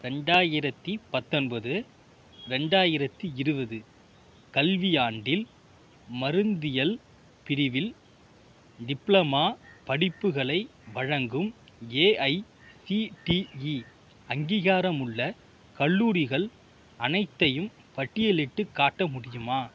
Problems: background sounds at intervals